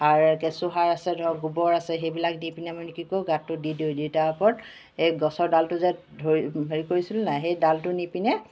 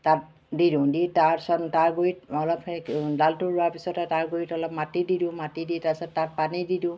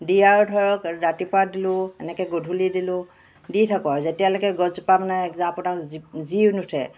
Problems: background sounds at intervals